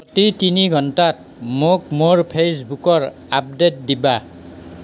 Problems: constant background noise